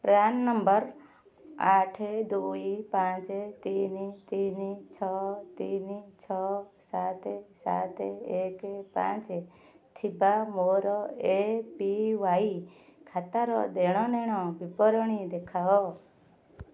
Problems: none marked